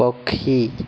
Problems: constant background noise